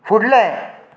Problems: background conversations at intervals